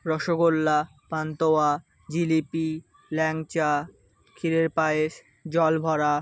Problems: background sounds at intervals